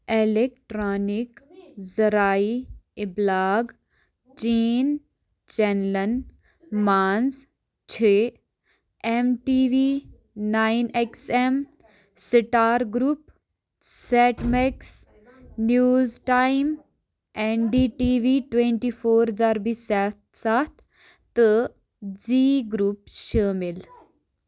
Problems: background sounds at intervals